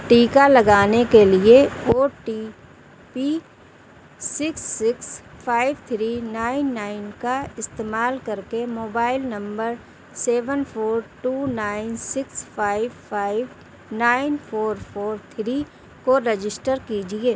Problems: none marked